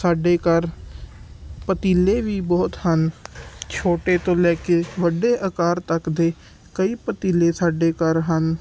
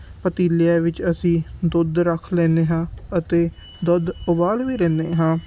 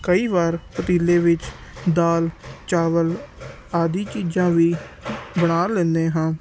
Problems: background sounds at intervals